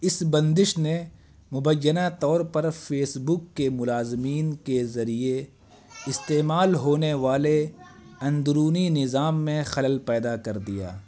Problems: constant background noise